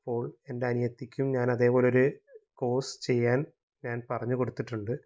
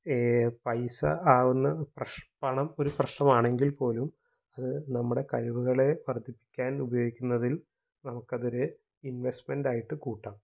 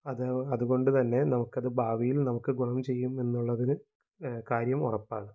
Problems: low volume